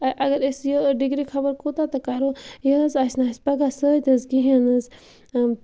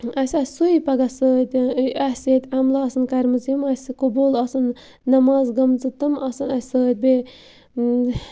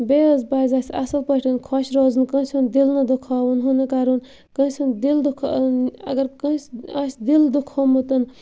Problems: constant background noise